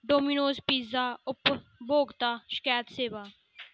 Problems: none marked